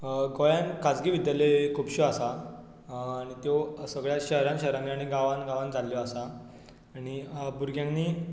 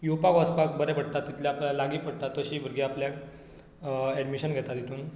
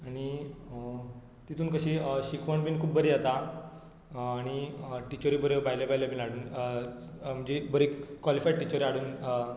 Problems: background sounds at intervals